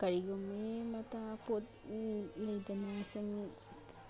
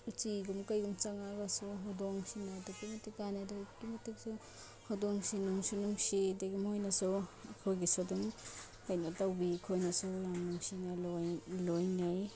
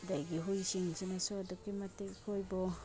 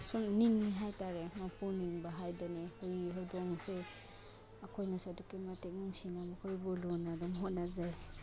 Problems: background sounds at intervals